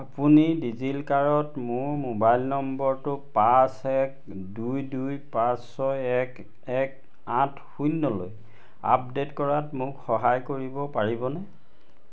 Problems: constant background noise